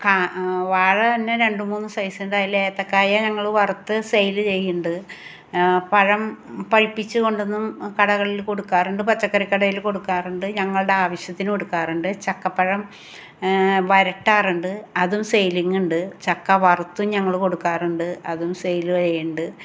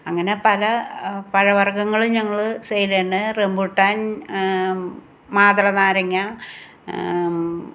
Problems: none marked